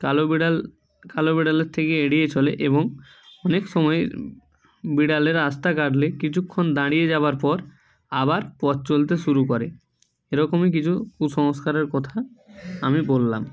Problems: none marked